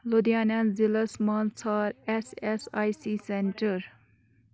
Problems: background sounds at intervals